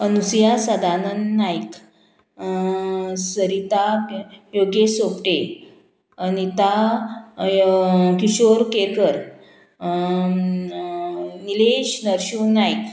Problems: none marked